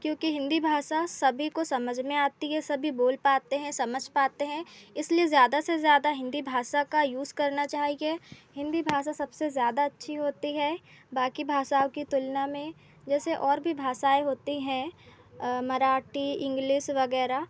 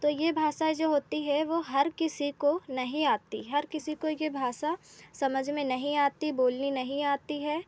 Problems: none marked